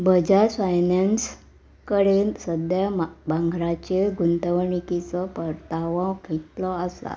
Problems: background sounds at intervals